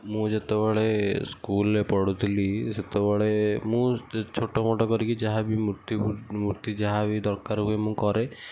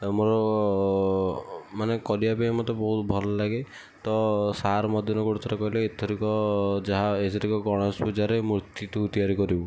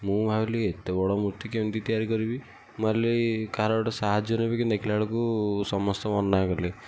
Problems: none marked